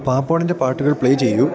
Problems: constant background noise